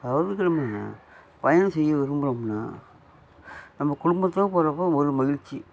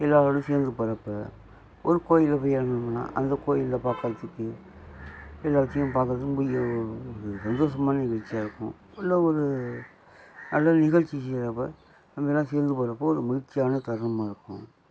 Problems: background sounds at intervals